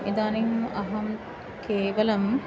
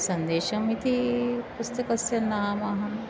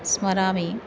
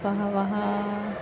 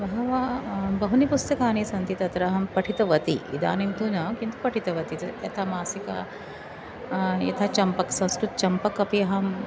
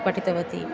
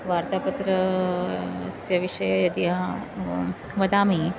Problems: constant background noise, continuous background conversations